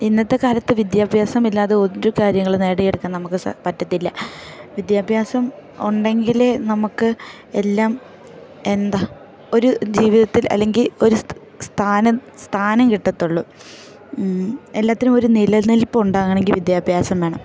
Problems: background sounds at intervals